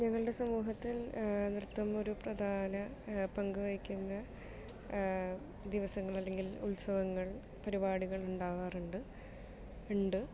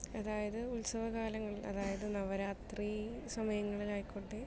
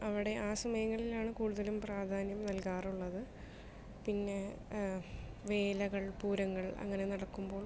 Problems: low volume